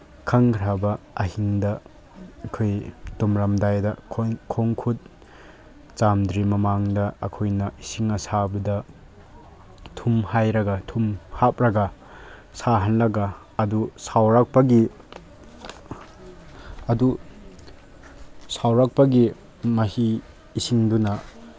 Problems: none marked